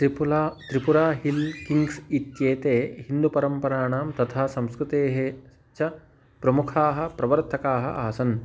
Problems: background sounds at intervals